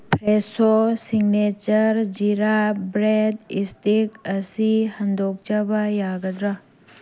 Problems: constant background noise